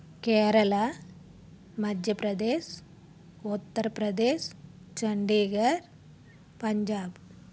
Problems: none marked